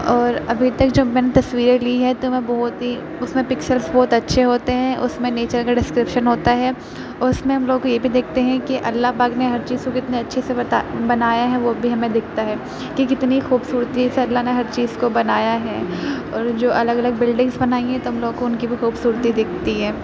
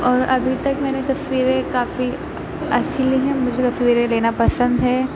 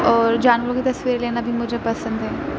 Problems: constant background noise